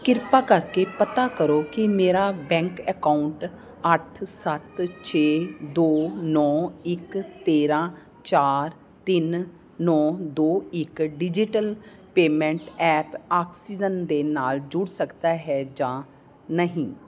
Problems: constant background noise